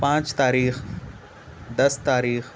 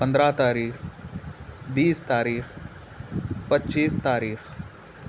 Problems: none marked